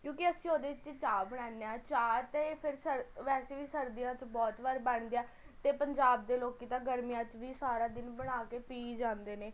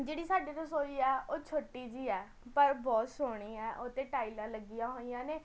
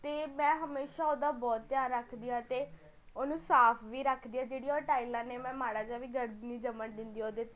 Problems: constant background noise, continuous background conversations